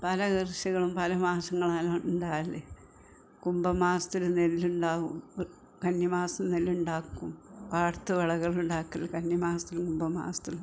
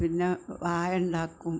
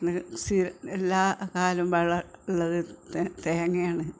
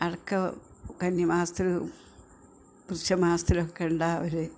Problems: background sounds at intervals, background conversations at intervals